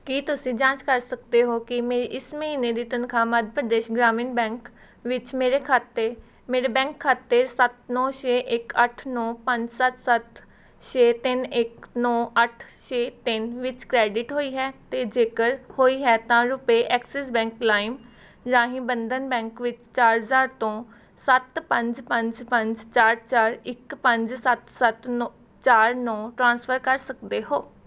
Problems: none marked